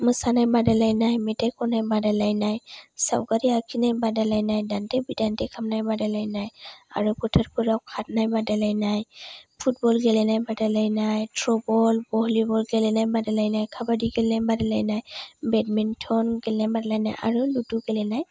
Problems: none marked